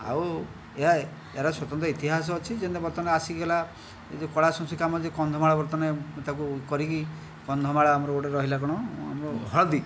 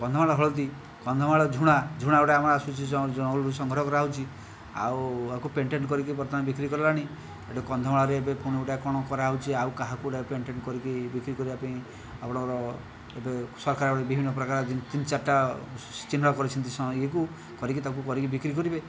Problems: background conversations at intervals